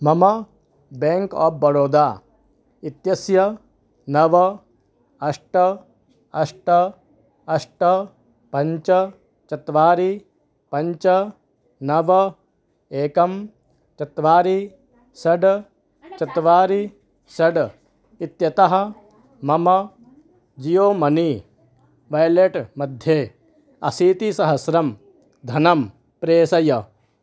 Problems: none marked